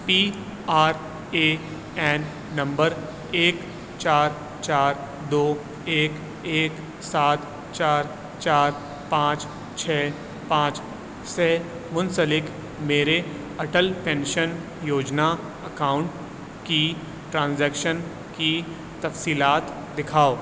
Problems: constant background noise